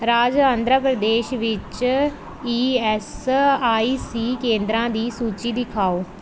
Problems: background sounds at intervals